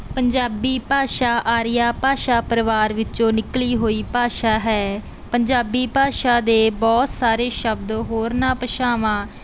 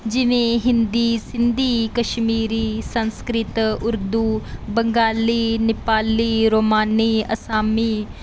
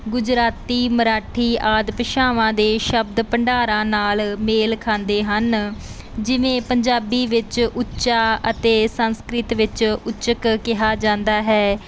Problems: none marked